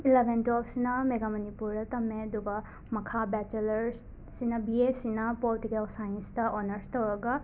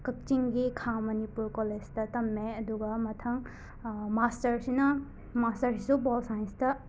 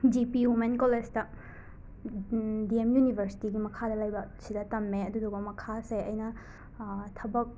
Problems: constant background noise